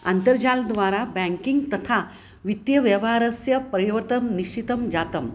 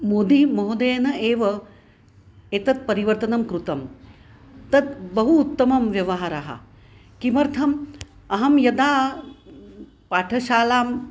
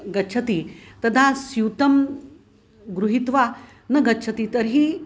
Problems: constant background noise